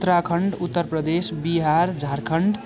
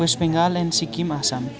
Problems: continuous background conversations